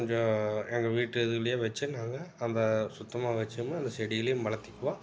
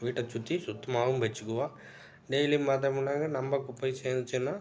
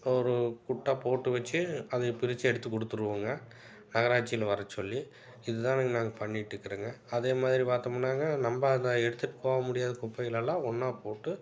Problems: none marked